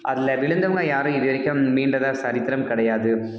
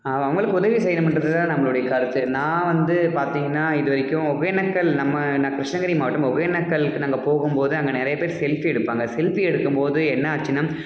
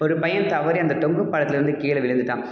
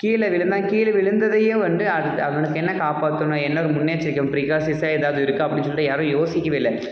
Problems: background sounds at intervals